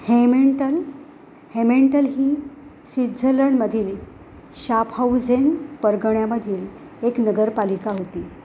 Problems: constant background noise